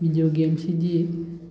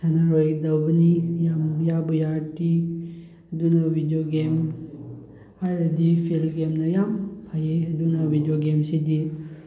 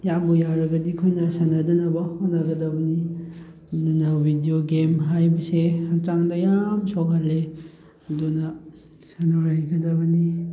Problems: background sounds at intervals